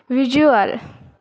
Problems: none marked